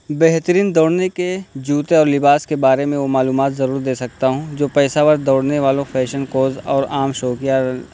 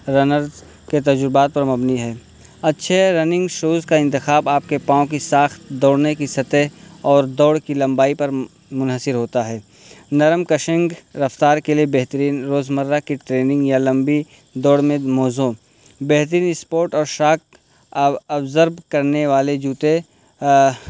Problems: constant background noise